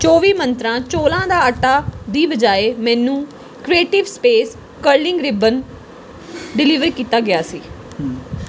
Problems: constant background noise